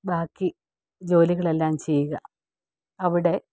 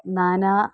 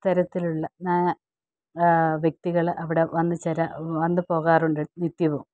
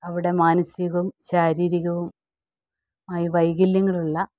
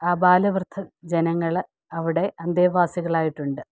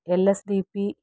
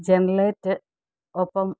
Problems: none marked